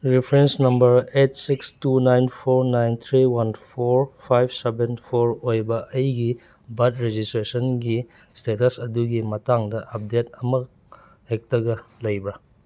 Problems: none marked